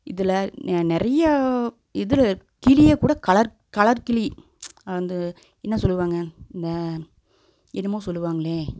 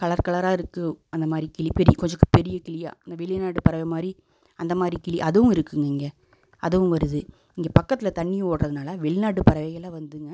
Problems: none marked